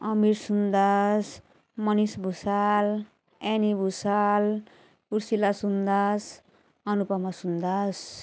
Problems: none marked